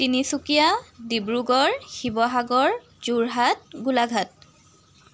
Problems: constant background noise